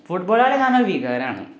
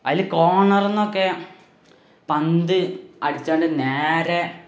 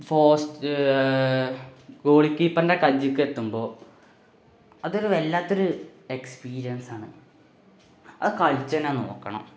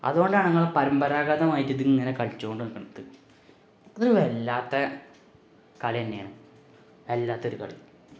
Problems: background sounds at intervals